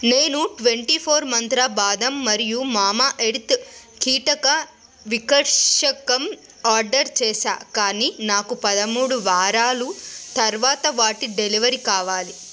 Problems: constant background noise